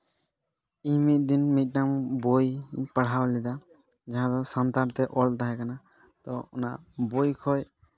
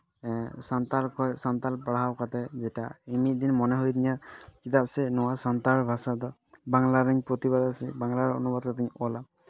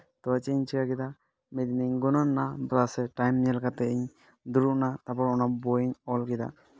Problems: background conversations at intervals